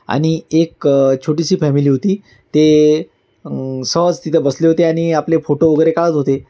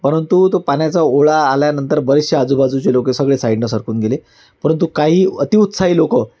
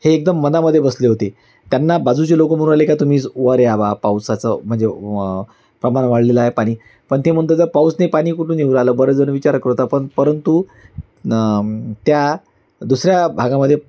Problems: constant background noise, background conversations at intervals